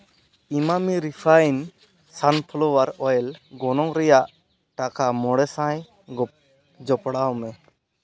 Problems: background sounds at intervals, background conversations at intervals